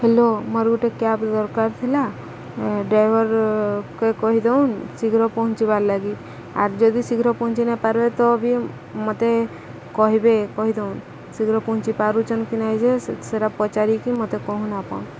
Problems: constant background noise